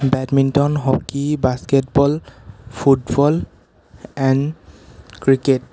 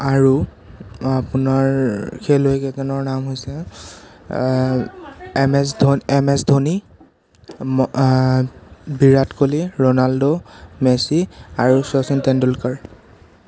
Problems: none marked